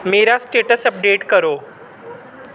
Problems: constant background noise